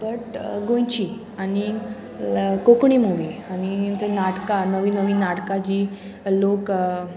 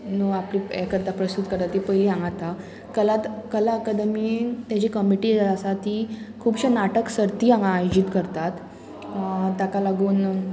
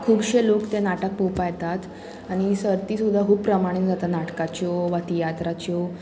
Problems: constant background noise